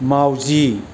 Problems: constant background noise